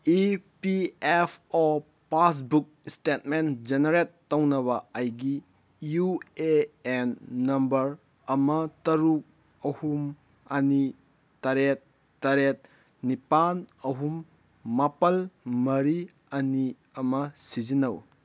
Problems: none marked